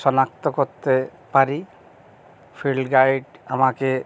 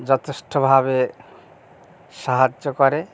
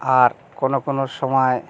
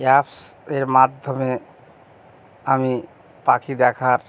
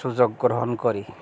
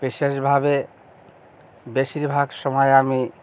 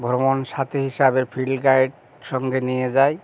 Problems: constant background noise